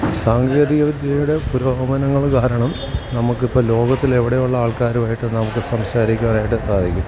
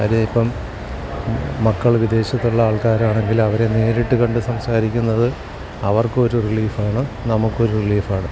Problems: constant background noise, background conversations at intervals, low volume